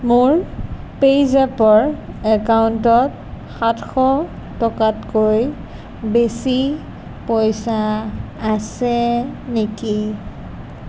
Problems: constant background noise